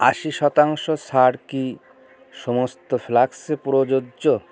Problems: constant background noise